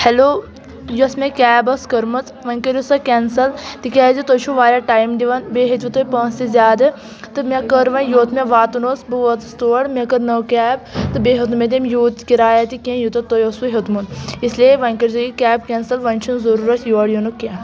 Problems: none marked